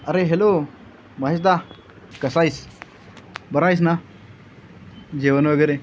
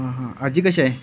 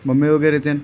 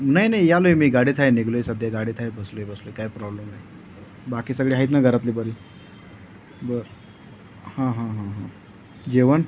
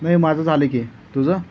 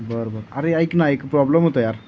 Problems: none marked